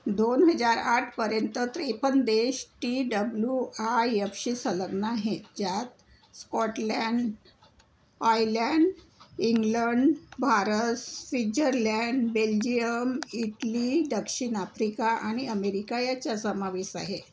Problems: none marked